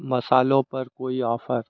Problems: none marked